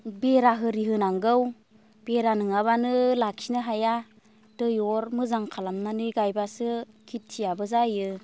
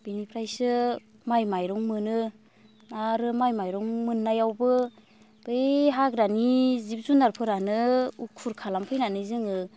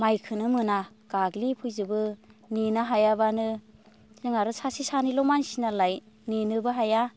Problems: constant background noise